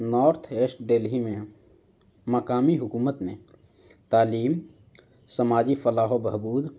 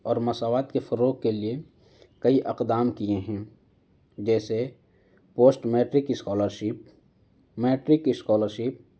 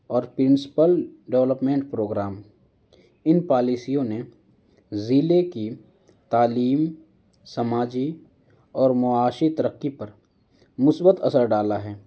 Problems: background sounds at intervals